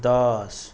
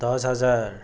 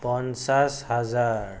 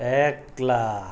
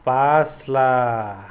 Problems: background sounds at intervals